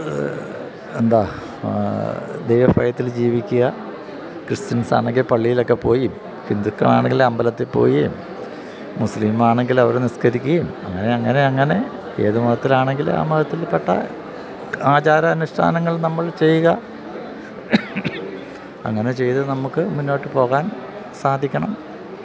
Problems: constant background noise